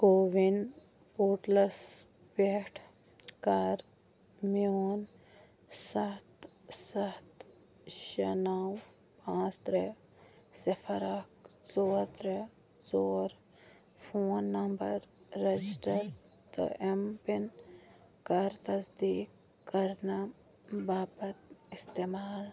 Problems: background sounds at intervals, low volume